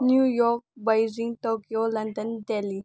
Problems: low volume